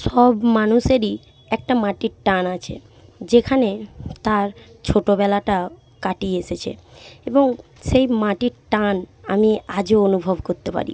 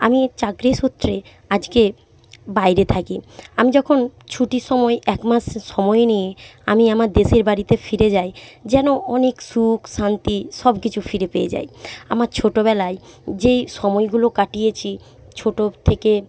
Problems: none marked